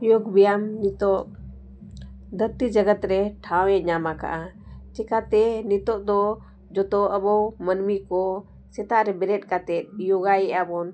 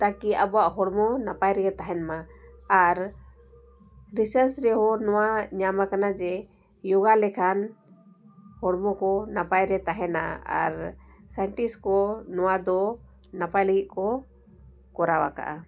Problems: constant background noise